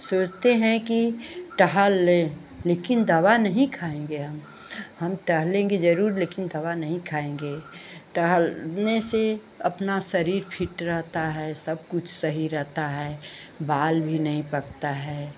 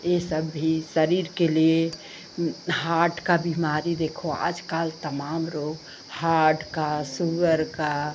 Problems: none marked